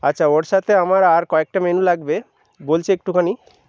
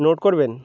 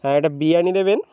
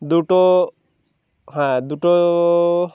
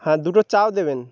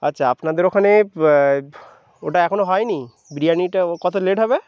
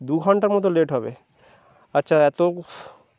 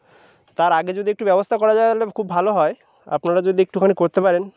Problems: background sounds at intervals